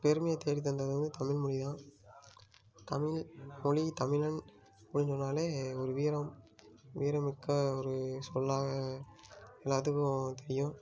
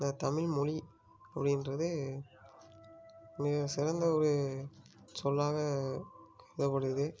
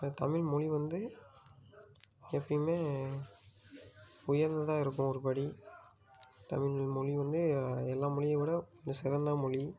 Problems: low volume